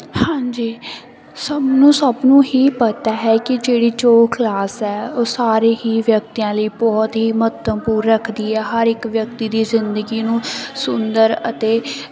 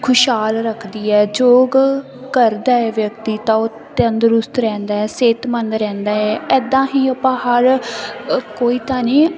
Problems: constant background noise